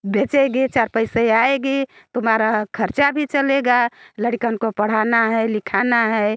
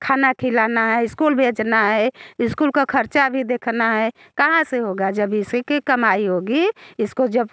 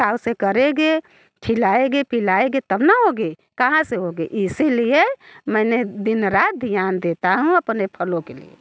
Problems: background sounds at intervals